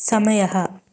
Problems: constant background noise